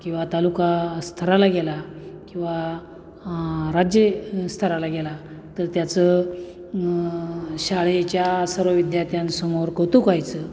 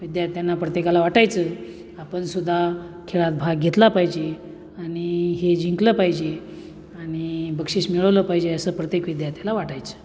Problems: background sounds at intervals